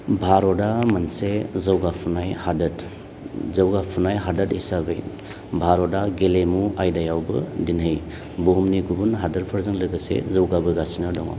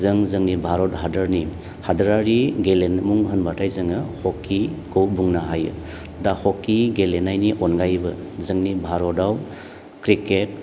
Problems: low volume